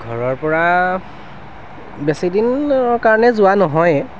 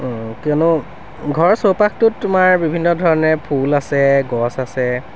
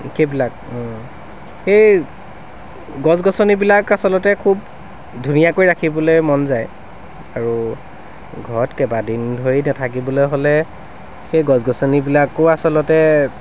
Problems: constant background noise